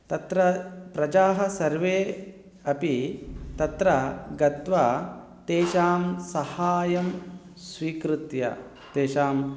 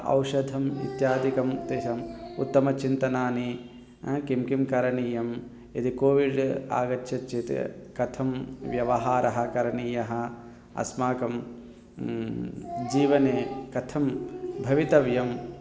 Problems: background conversations at intervals